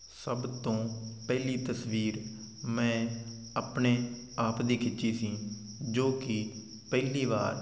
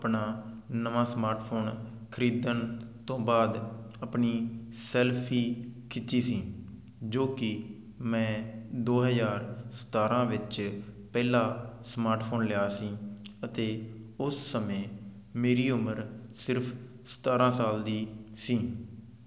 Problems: none marked